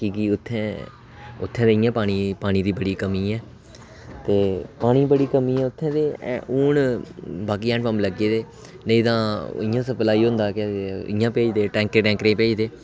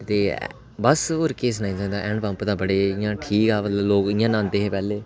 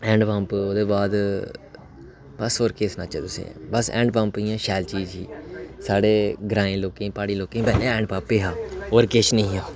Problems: constant background noise